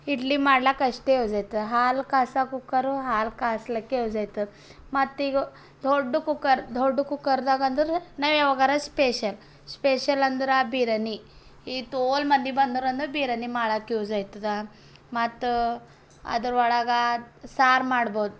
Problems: background sounds at intervals